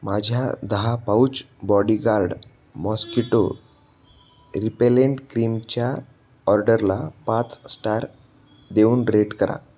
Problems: none marked